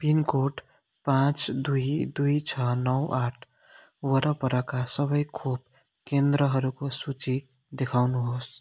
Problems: none marked